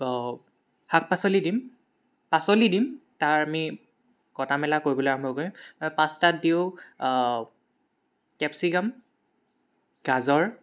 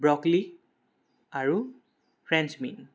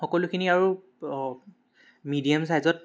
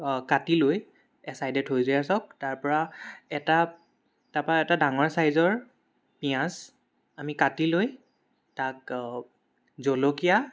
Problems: background sounds at intervals, background conversations at intervals